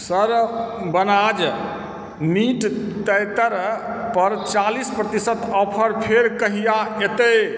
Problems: background sounds at intervals